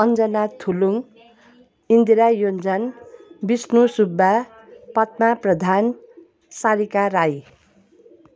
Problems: none marked